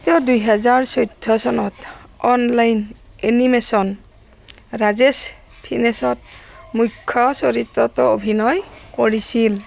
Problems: constant background noise